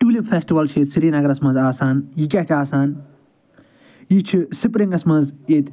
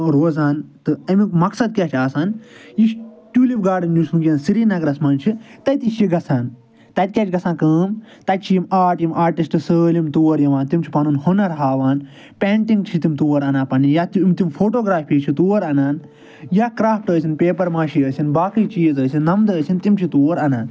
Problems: none marked